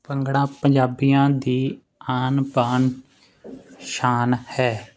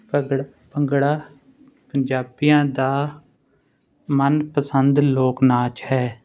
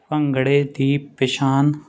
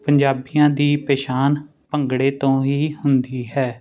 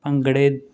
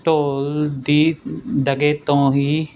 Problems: none marked